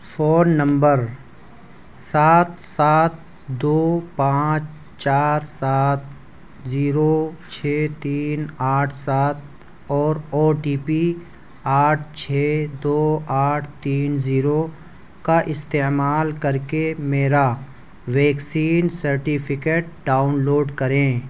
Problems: none marked